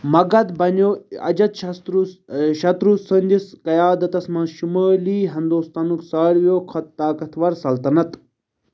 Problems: none marked